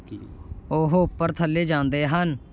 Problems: background conversations at intervals